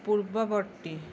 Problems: constant background noise